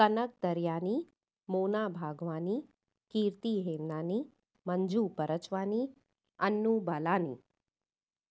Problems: none marked